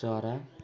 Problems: background sounds at intervals